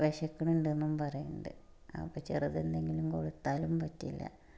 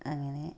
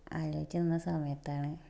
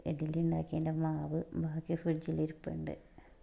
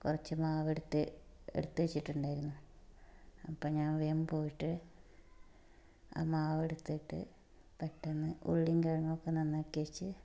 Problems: background sounds at intervals, low volume